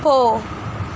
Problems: none marked